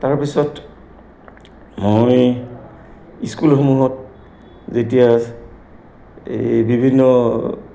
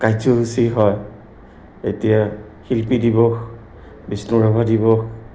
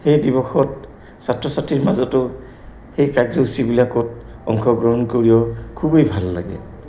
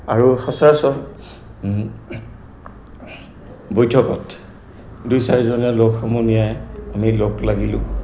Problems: background sounds at intervals